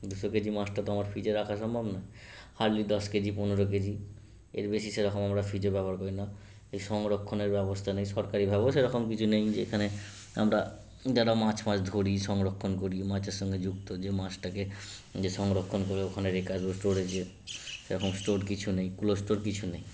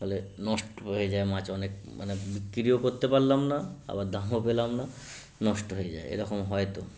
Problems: constant background noise